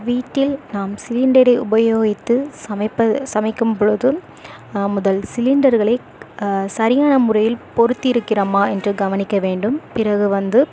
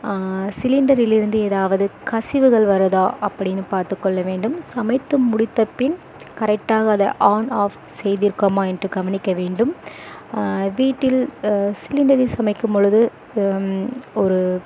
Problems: constant background noise